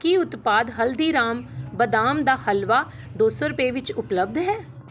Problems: none marked